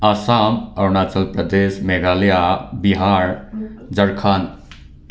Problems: background sounds at intervals